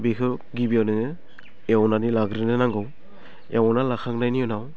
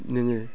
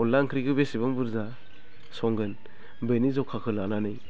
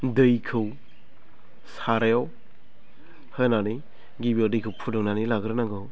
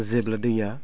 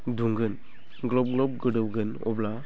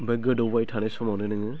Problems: none marked